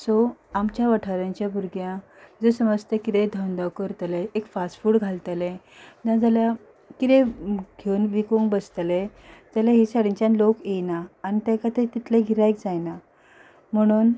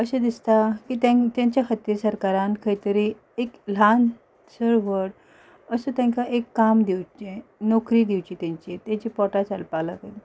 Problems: none marked